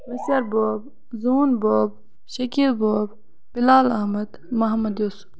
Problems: background sounds at intervals